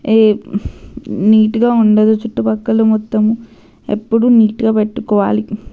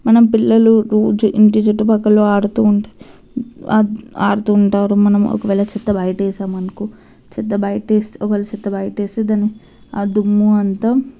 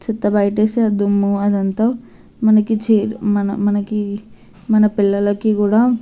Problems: constant background noise